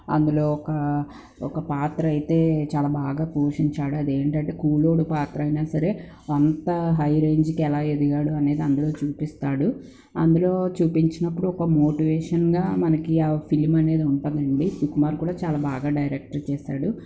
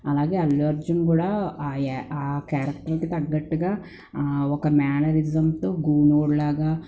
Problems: none marked